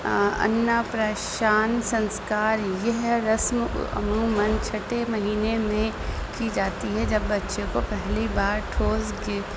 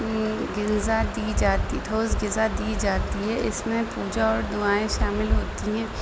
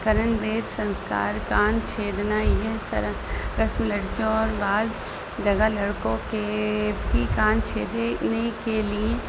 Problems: constant background noise